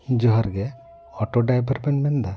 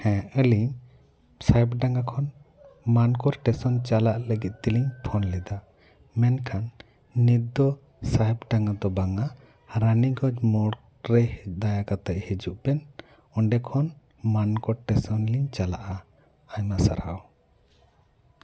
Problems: background sounds at intervals